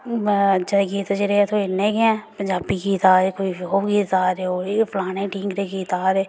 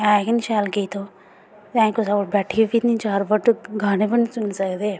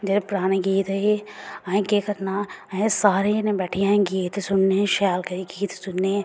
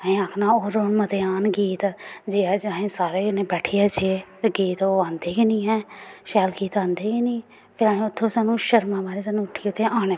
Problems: background sounds at intervals